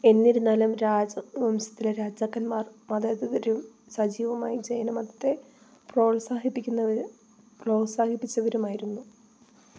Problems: low volume